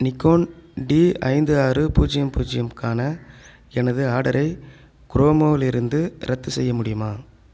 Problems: none marked